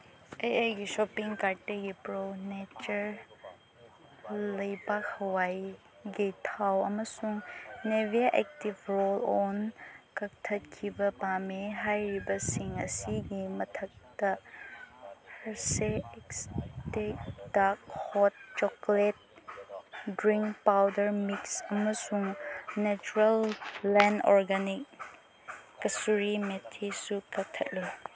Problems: constant background noise